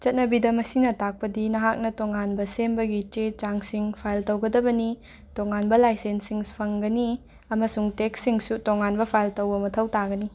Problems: none marked